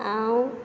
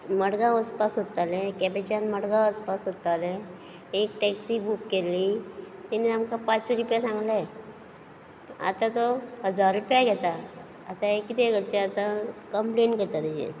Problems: background sounds at intervals